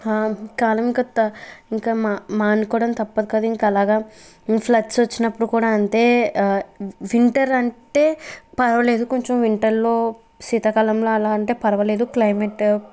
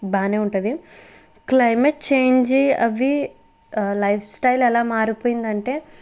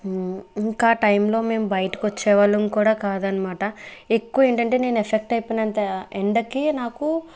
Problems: background conversations at intervals